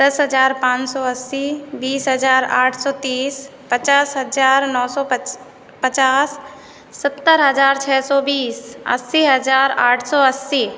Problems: constant background noise